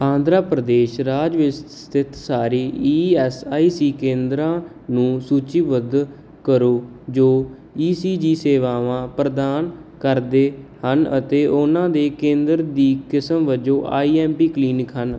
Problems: none marked